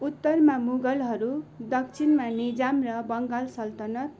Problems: background sounds at intervals